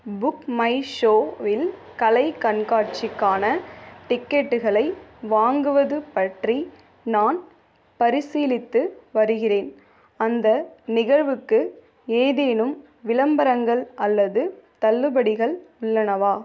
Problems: background sounds at intervals